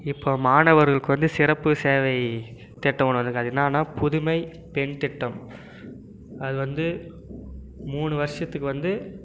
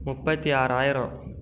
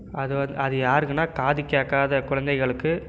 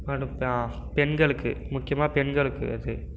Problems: none marked